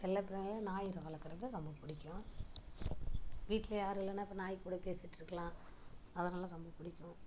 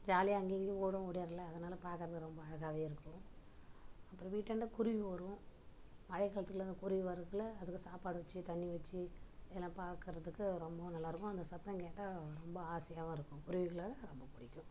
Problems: background sounds at intervals, low volume